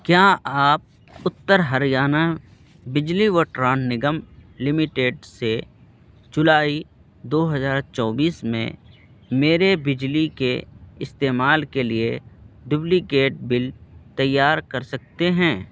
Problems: constant background noise